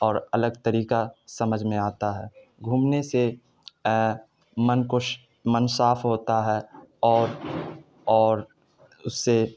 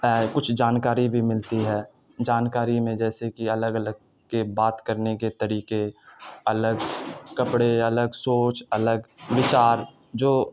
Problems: none marked